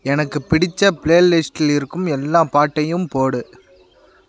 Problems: constant background noise